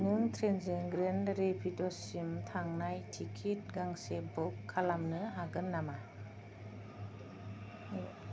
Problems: low volume